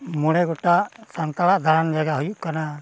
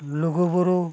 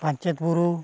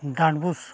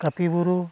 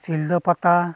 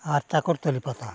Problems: none marked